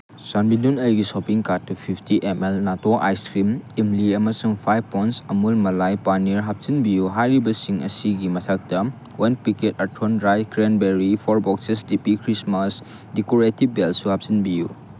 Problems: constant background noise